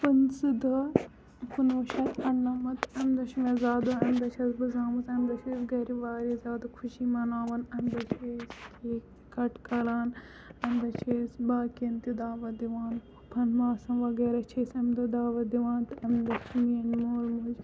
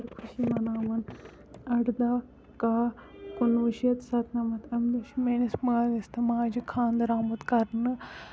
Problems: background sounds at intervals, low volume